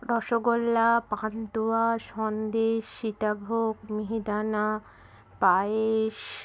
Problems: background sounds at intervals